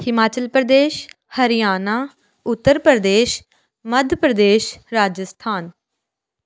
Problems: none marked